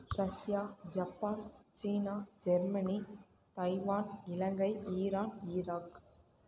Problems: none marked